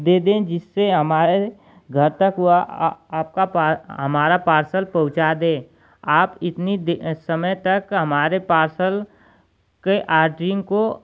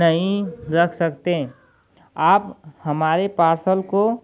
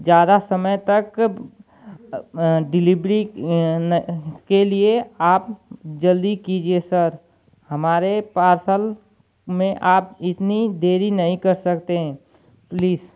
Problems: constant background noise